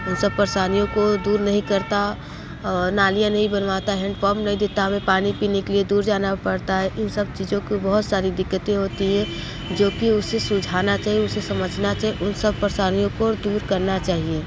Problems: constant background noise